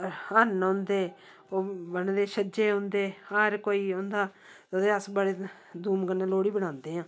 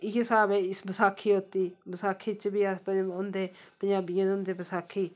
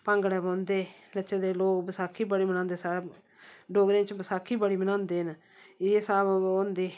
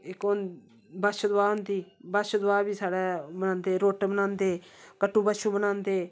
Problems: background sounds at intervals